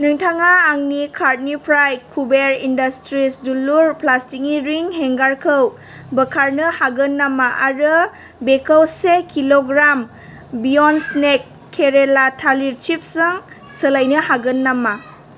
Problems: none marked